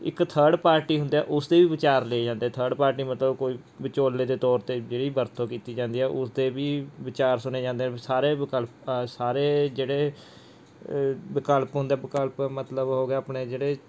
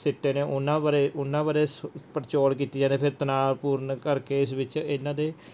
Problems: background sounds at intervals